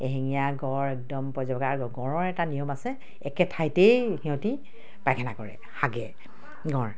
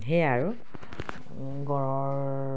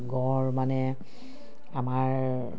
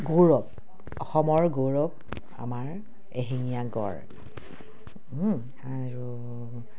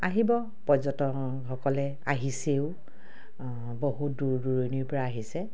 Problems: none marked